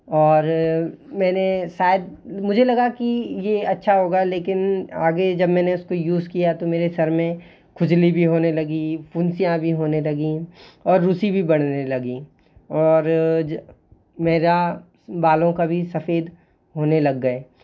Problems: constant background noise